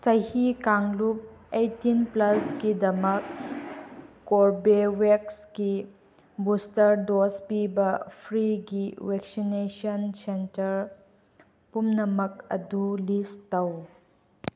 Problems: none marked